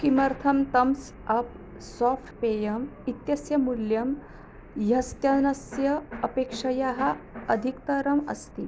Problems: constant background noise